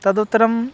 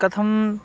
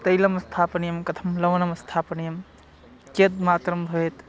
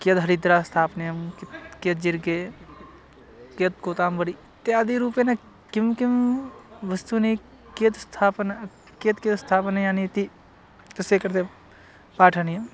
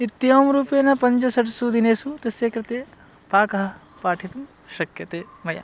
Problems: none marked